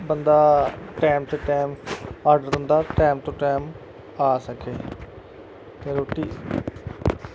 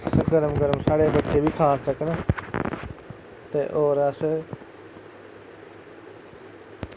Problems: constant background noise